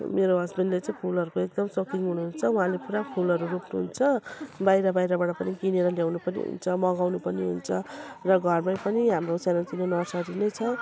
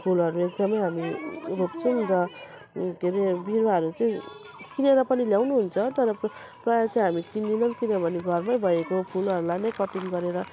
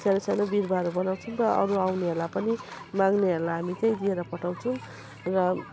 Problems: background sounds at intervals